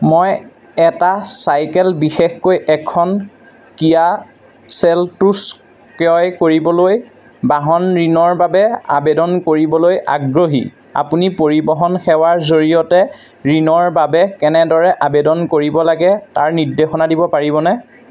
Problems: constant background noise